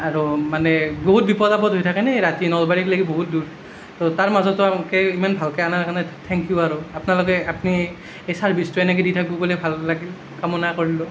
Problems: none marked